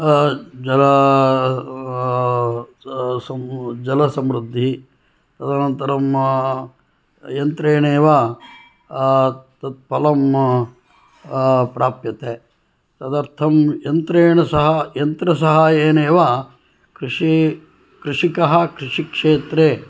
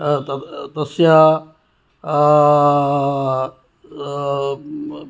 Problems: background sounds at intervals